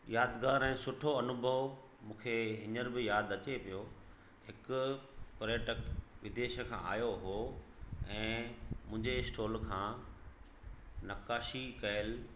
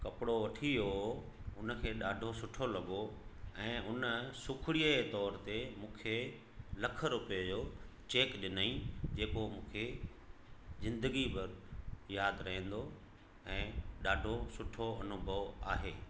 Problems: constant background noise, echo